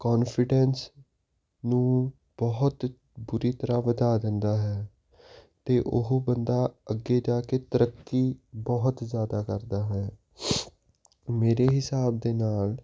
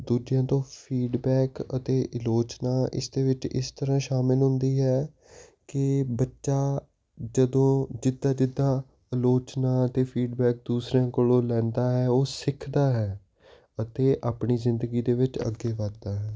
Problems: constant background noise